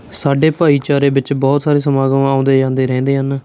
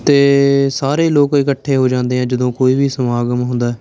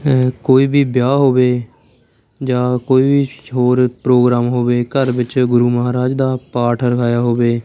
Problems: constant background noise